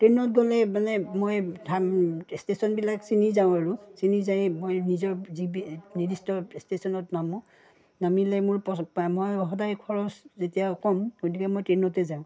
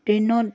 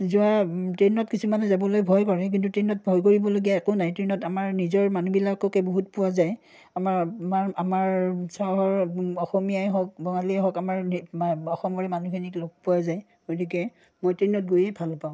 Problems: none marked